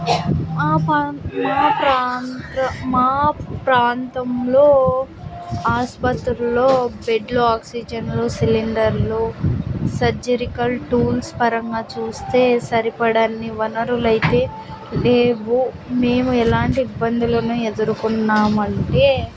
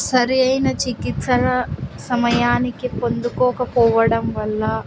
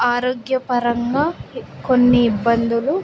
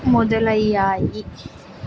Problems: constant background noise